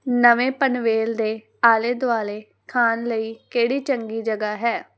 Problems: constant background noise